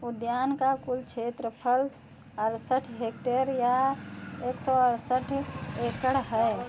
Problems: background conversations at intervals